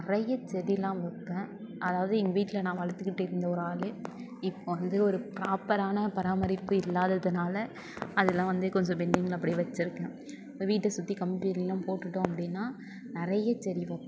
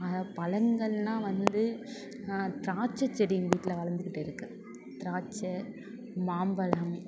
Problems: continuous background conversations